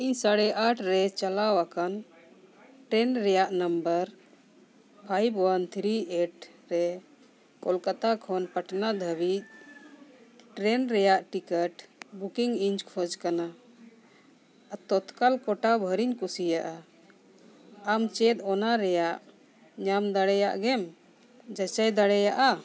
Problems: background sounds at intervals, continuous background conversations